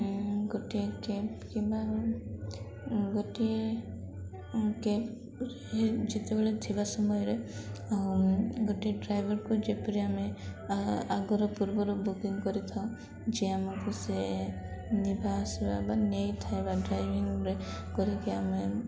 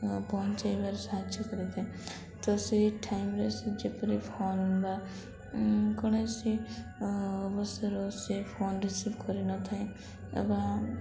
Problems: constant background noise, continuous background conversations